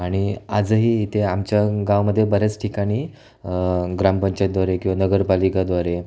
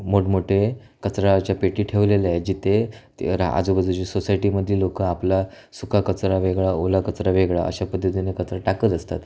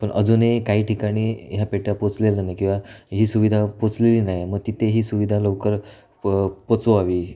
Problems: none marked